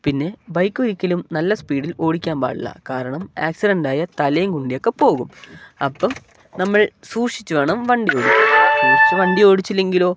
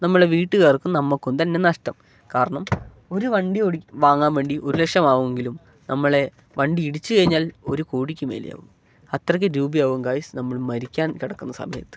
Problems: none marked